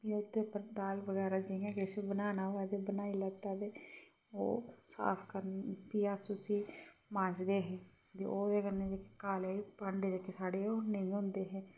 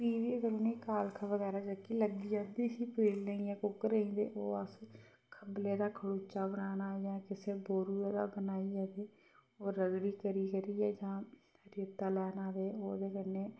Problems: background sounds at intervals, low volume